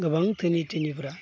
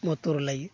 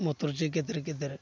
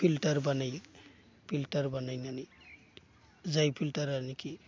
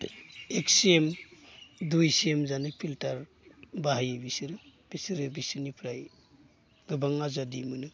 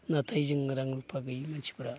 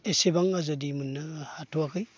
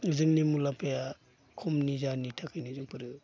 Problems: constant background noise